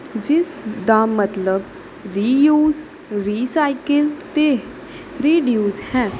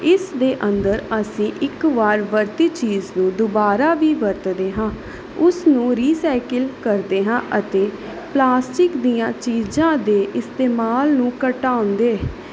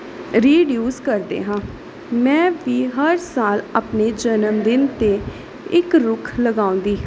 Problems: background sounds at intervals